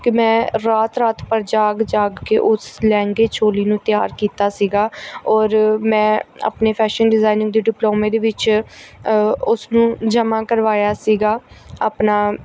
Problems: background sounds at intervals